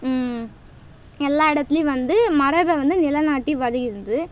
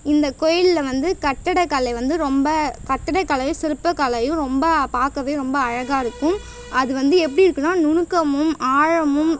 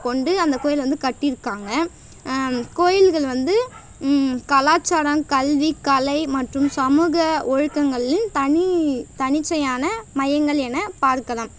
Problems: background sounds at intervals